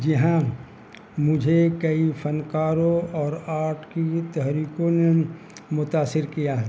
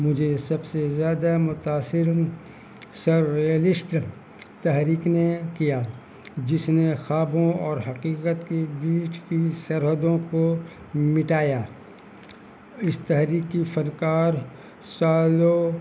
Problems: constant background noise